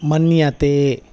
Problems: background sounds at intervals